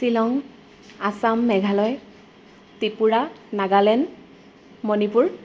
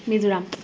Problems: none marked